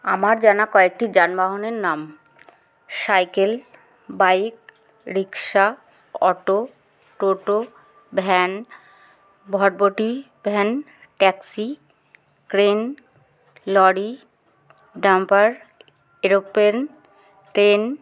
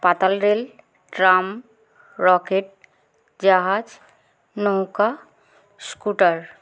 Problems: constant background noise